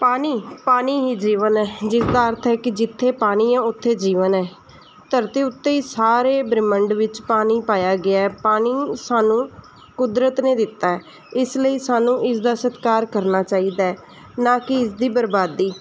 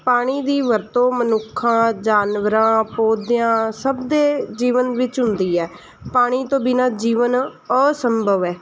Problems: background sounds at intervals